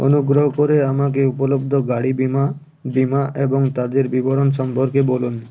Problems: background sounds at intervals